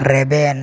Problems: constant background noise